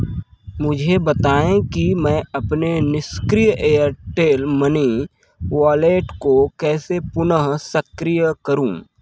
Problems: none marked